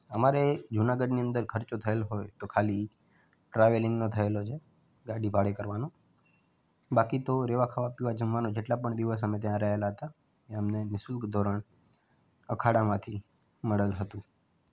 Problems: background sounds at intervals